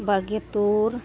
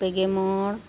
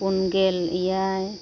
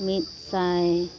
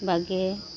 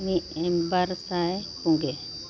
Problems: constant background noise, continuous background conversations, low volume